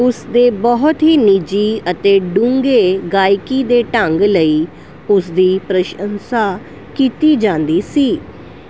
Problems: none marked